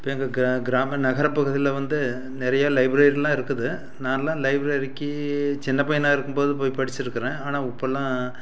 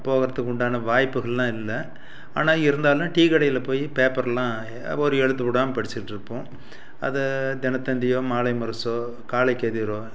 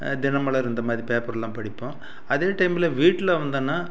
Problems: none marked